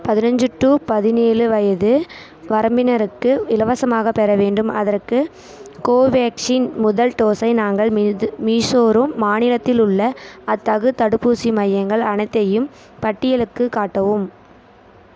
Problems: constant background noise, continuous background conversations